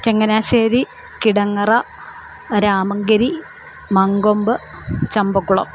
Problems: constant background noise